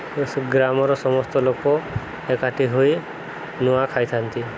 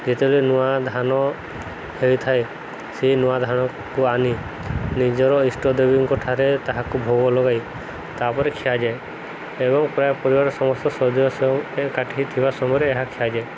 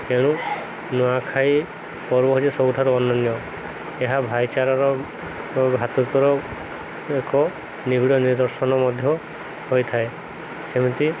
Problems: constant background noise